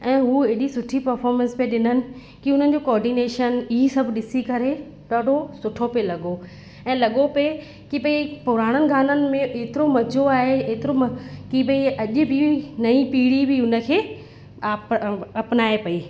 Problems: constant background noise, echo